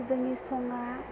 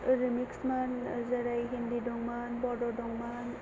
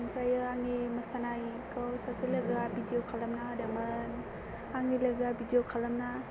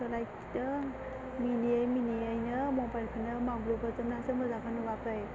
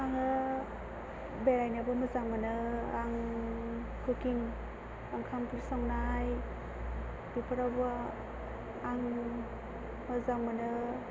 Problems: constant background noise